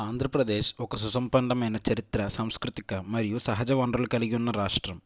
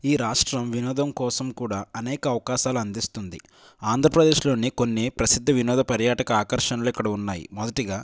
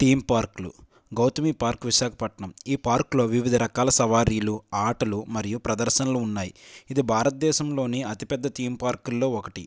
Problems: none marked